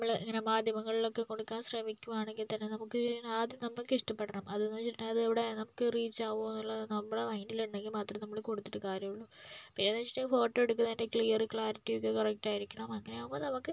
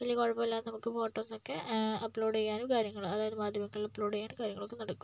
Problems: low volume